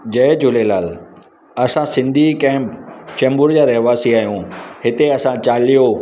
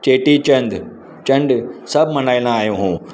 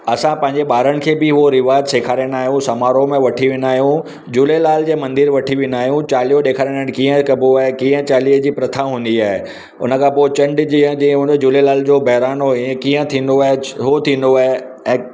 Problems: none marked